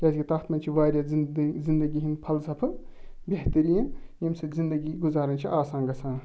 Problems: background sounds at intervals